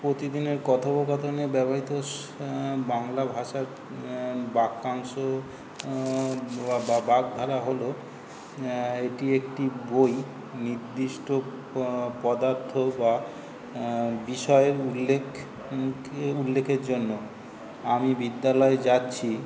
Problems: constant background noise